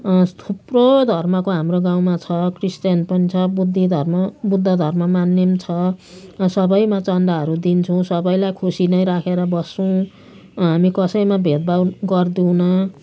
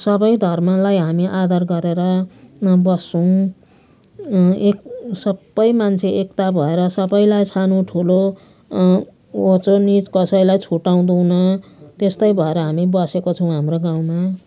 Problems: none marked